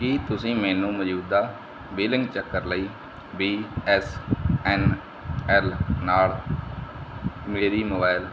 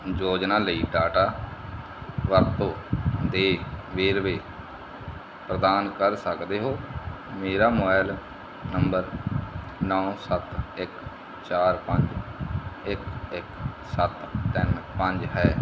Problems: constant background noise